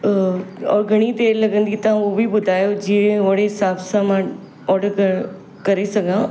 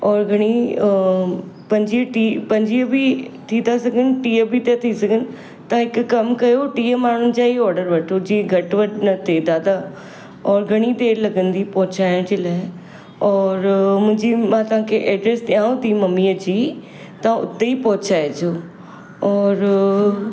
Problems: constant background noise, background conversations at intervals